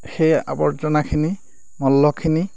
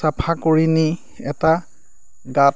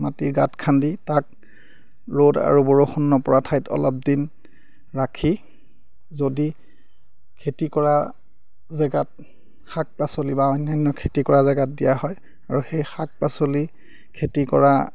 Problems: none marked